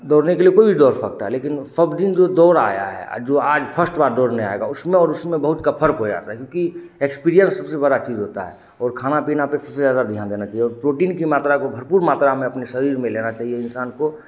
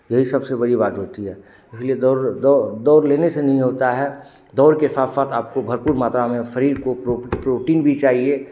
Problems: constant background noise